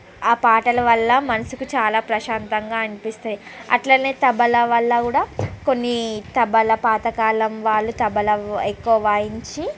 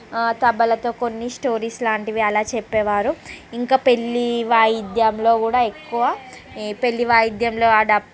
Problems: background conversations at intervals